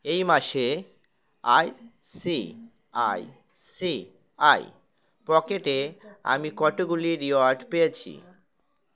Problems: background sounds at intervals